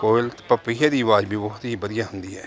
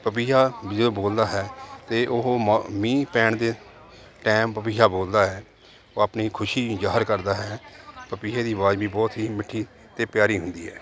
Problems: background sounds at intervals